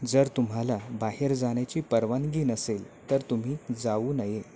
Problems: none marked